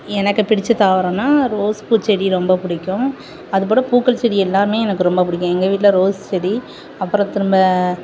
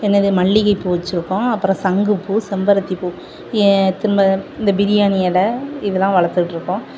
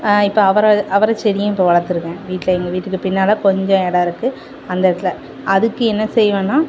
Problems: constant background noise